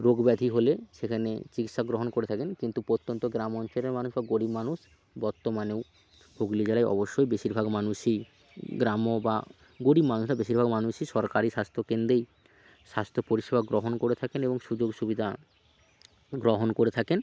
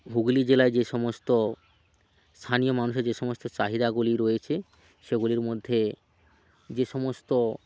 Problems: constant background noise, background conversations at intervals